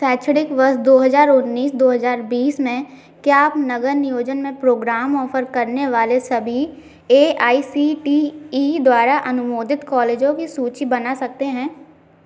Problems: background sounds at intervals